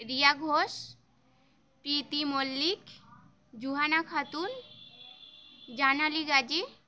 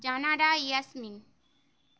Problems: none marked